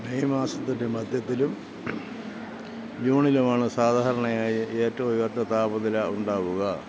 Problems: constant background noise, low volume